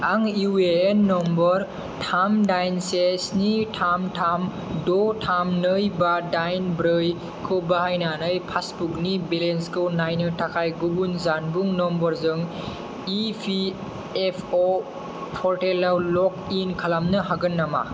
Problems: none marked